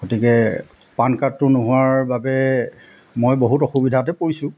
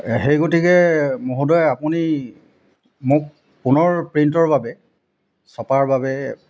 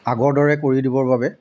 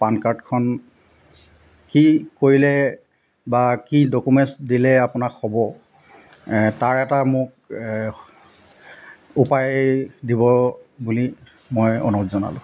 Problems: constant background noise